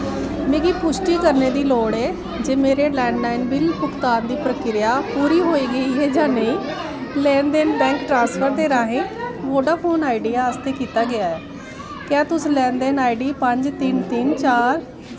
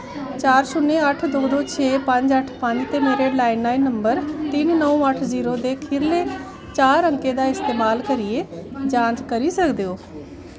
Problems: constant background noise